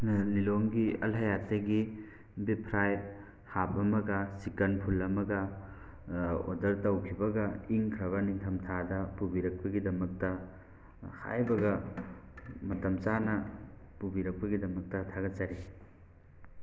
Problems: constant background noise